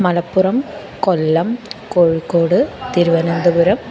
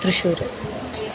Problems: constant background noise, continuous background conversations